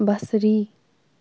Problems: constant background noise